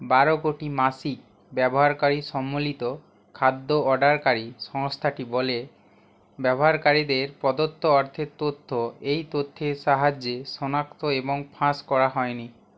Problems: none marked